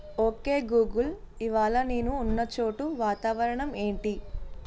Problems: constant background noise